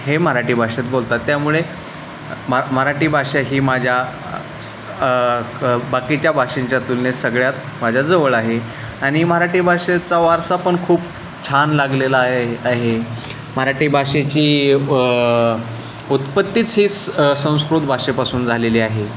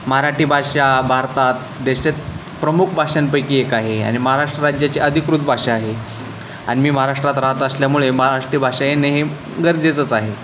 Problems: constant background noise